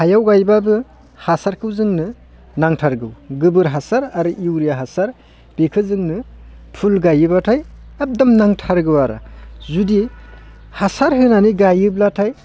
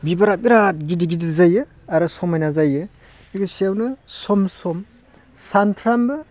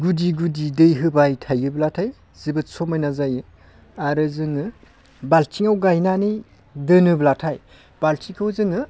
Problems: constant background noise